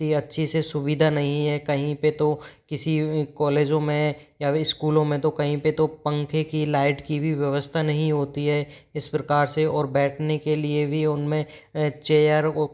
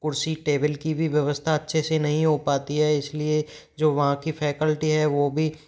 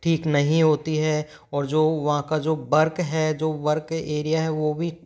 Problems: background sounds at intervals